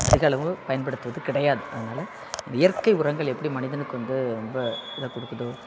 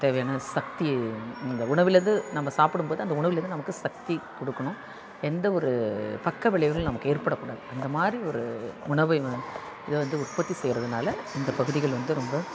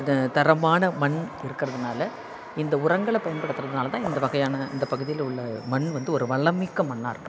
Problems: constant background noise, continuous background conversations